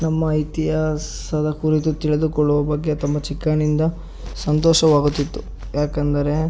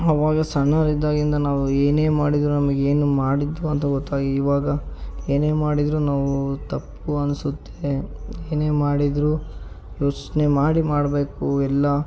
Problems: none marked